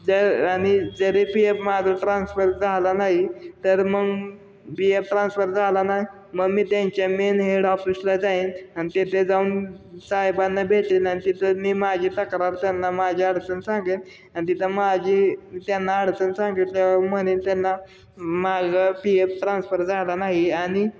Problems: none marked